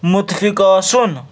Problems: none marked